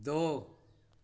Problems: constant background noise